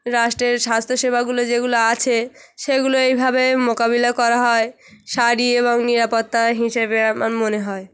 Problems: background sounds at intervals